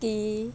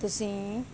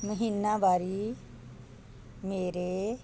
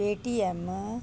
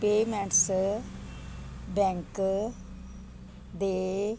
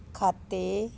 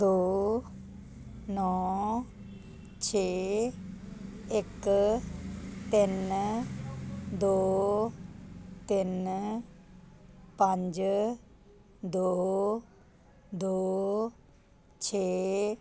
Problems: constant background noise